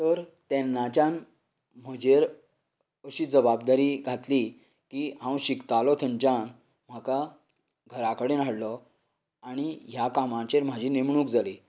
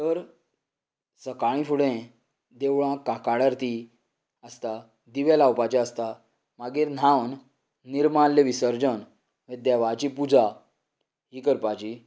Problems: none marked